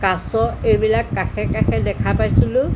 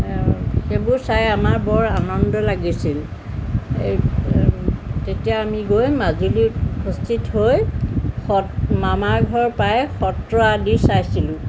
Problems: constant background noise